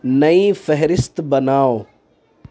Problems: constant background noise